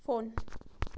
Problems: background sounds at intervals